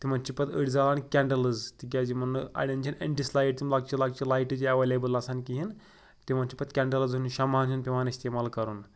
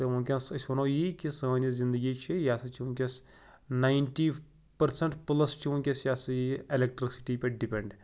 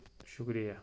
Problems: none marked